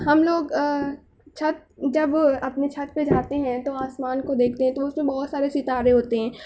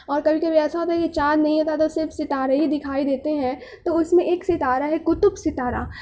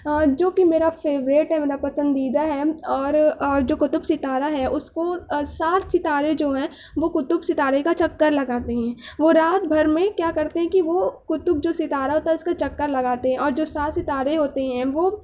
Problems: none marked